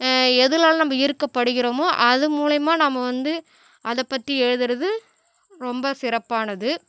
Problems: none marked